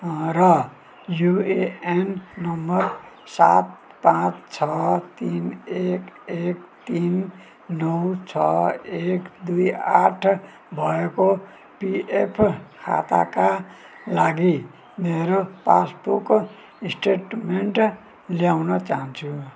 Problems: background sounds at intervals